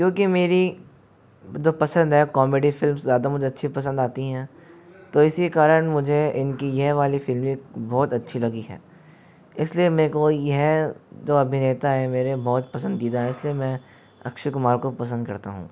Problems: background sounds at intervals